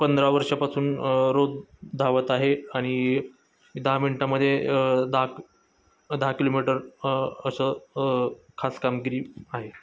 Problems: none marked